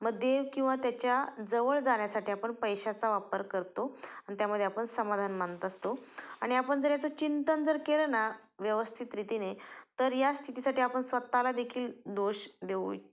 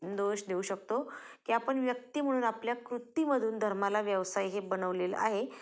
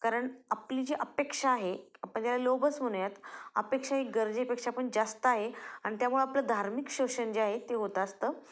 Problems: constant background noise, background conversations at intervals